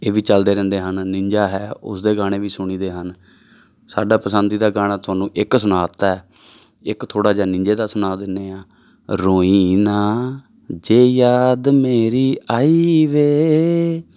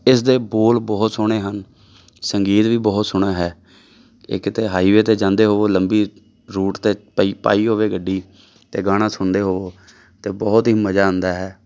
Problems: background sounds at intervals